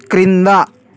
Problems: none marked